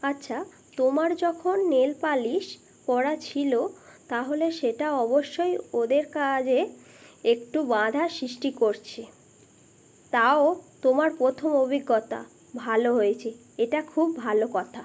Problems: background sounds at intervals